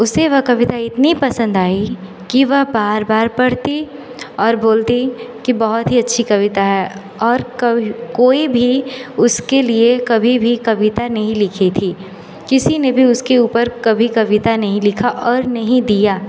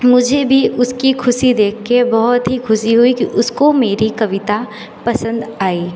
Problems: constant background noise, echo